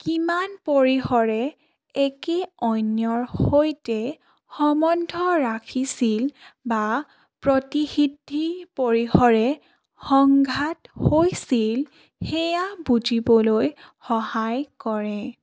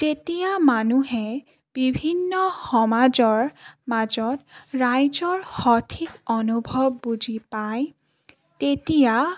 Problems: none marked